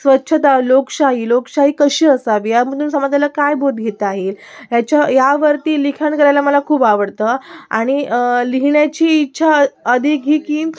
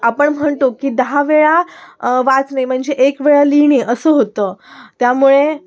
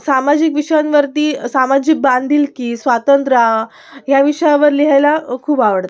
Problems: background sounds at intervals